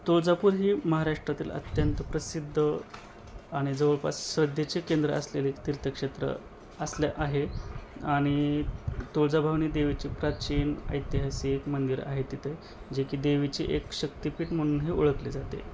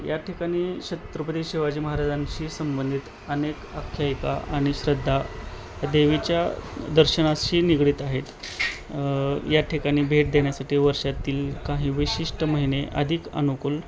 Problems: constant background noise